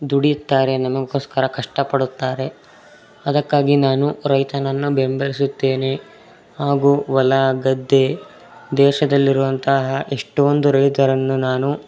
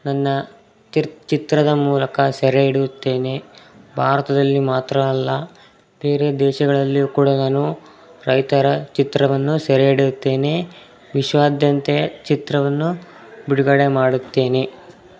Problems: background sounds at intervals, background conversations at intervals